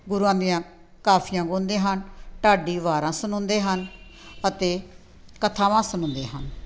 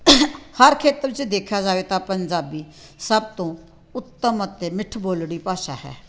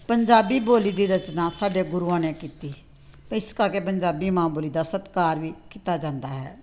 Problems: background sounds at intervals, background conversations at intervals